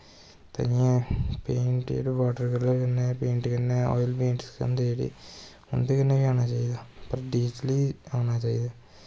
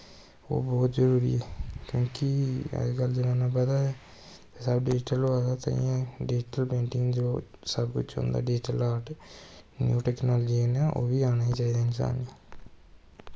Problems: constant background noise